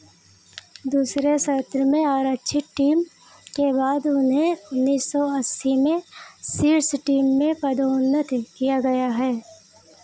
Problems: none marked